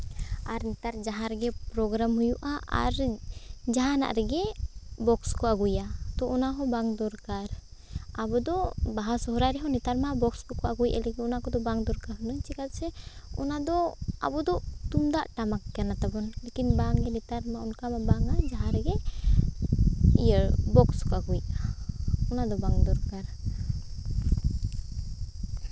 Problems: background sounds at intervals